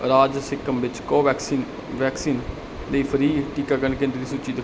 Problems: none marked